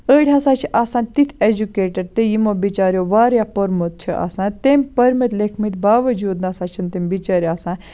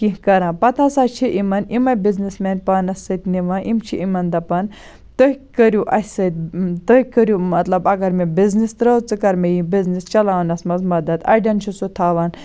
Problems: none marked